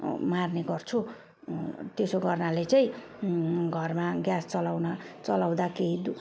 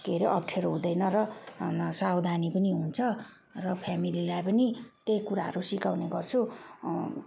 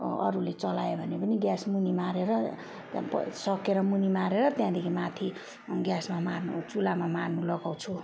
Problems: none marked